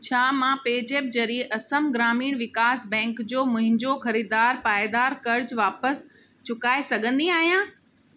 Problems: constant background noise